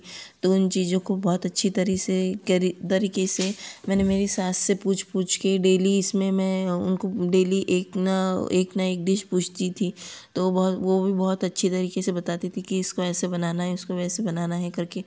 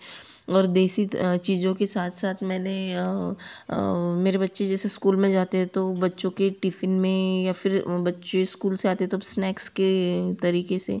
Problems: none marked